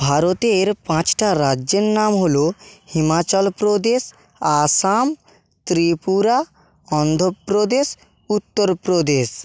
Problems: none marked